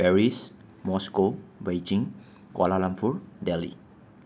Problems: none marked